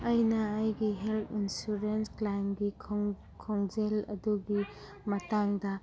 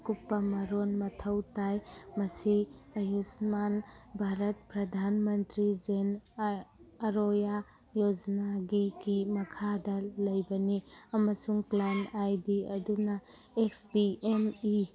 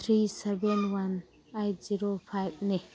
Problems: background sounds at intervals